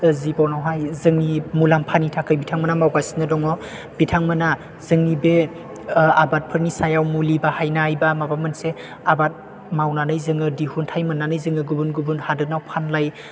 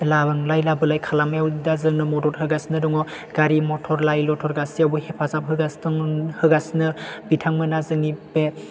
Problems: none marked